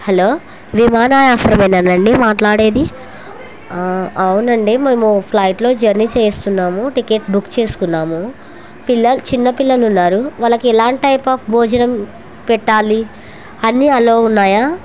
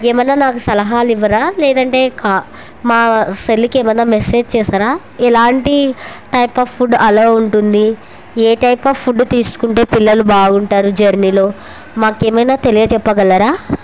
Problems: none marked